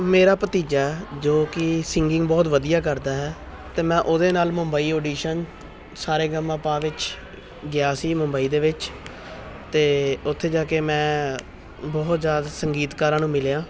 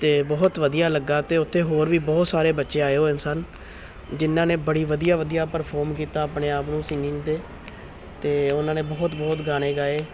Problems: continuous background conversations